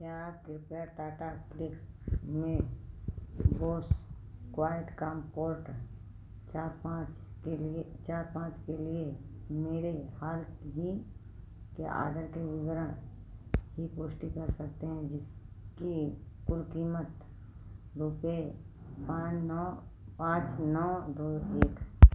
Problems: low volume